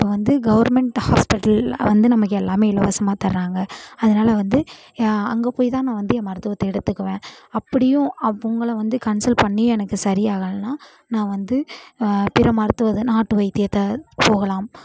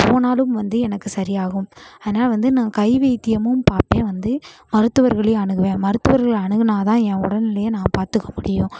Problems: constant background noise